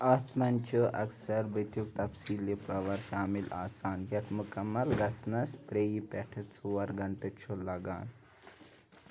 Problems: background sounds at intervals